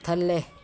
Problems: background sounds at intervals